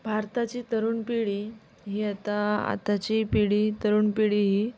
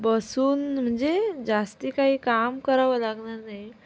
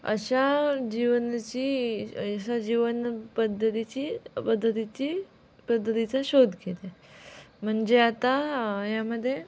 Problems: background sounds at intervals, background conversations at intervals